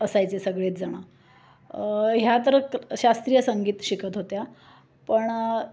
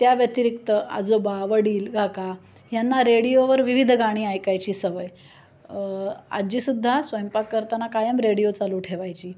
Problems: constant background noise, background conversations at intervals